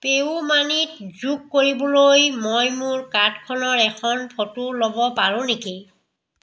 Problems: echo